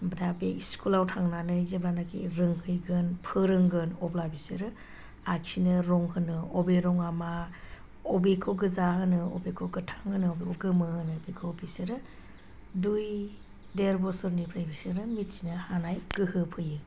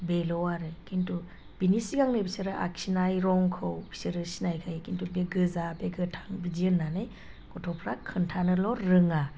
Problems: none marked